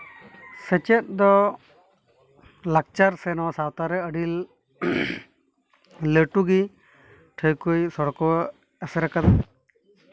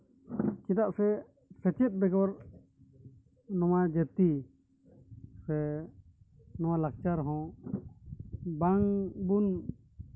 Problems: background sounds at intervals